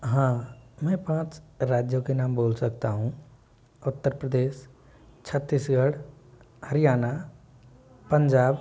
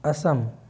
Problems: none marked